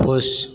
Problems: background sounds at intervals